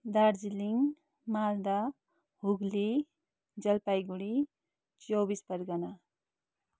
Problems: none marked